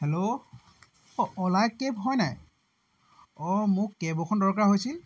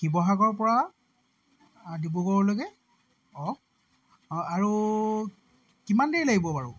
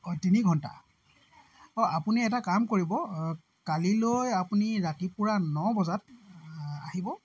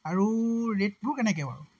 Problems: constant background noise